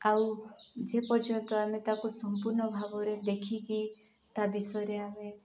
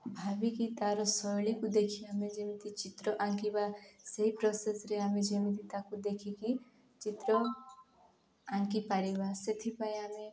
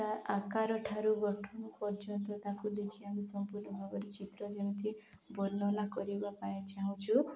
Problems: background sounds at intervals